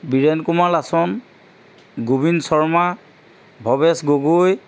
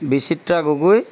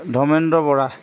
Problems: background sounds at intervals